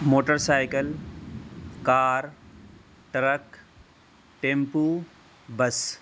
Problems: constant background noise